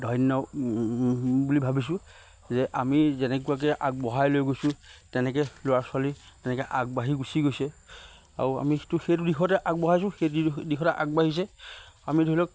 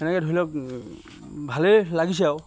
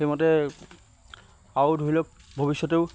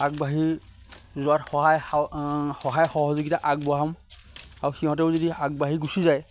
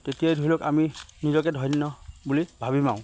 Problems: constant background noise